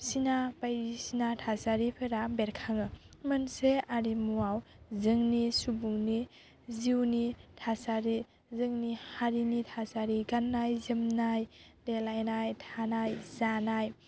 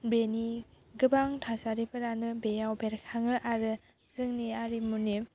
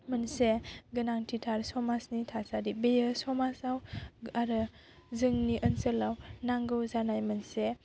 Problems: constant background noise